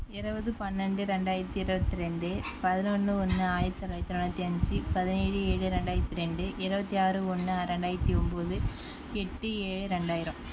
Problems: none marked